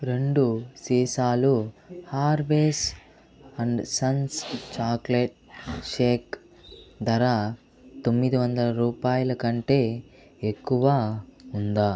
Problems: none marked